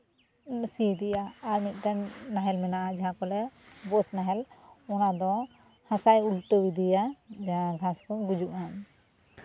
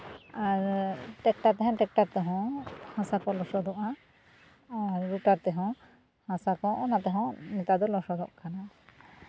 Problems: none marked